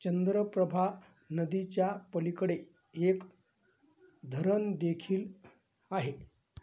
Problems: none marked